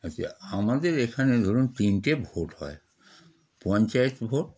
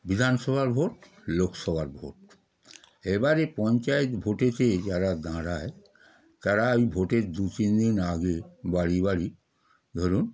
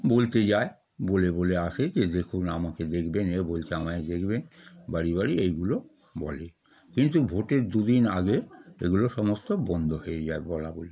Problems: background sounds at intervals